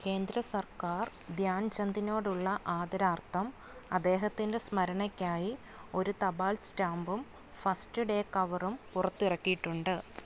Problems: none marked